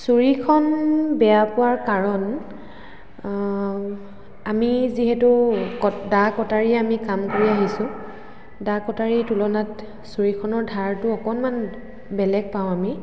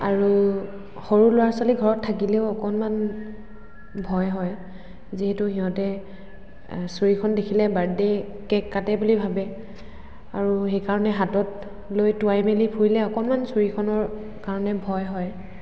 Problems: constant background noise, echo